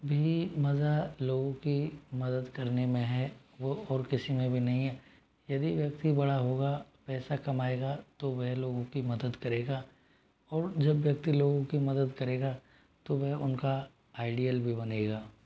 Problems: constant background noise